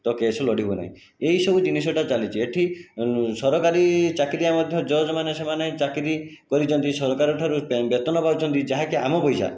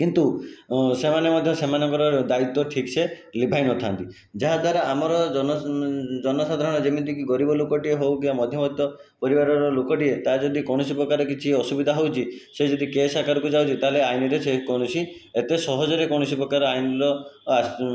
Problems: background sounds at intervals